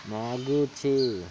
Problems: none marked